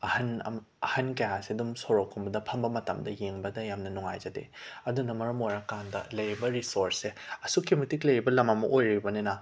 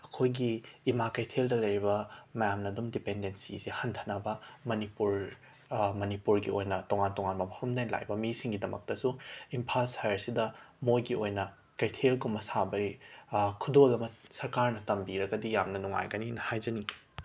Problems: background sounds at intervals